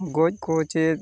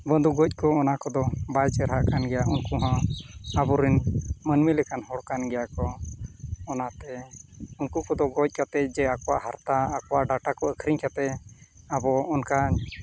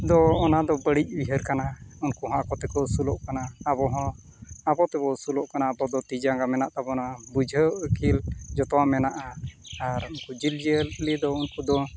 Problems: constant background noise